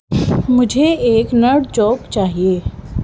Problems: none marked